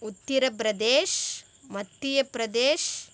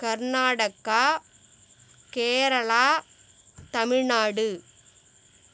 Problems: background sounds at intervals